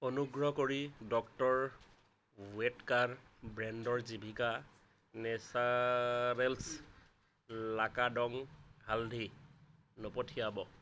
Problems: background sounds at intervals